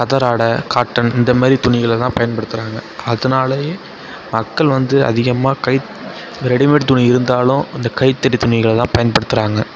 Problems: background sounds at intervals, continuous background conversations